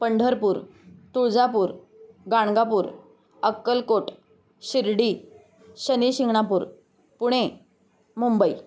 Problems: none marked